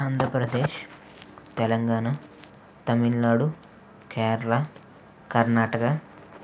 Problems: constant background noise